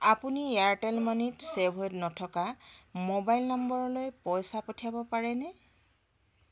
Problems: constant background noise, background conversations at intervals